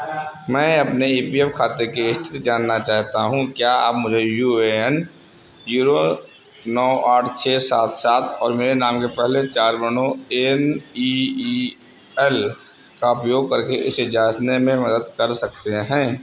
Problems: constant background noise